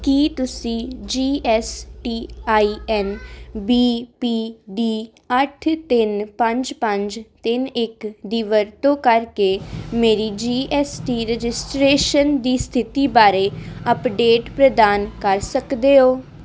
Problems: none marked